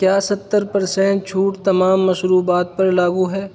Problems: constant background noise